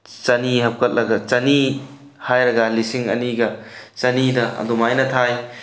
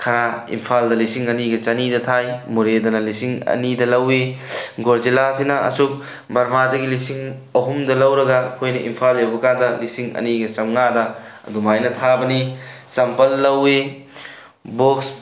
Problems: none marked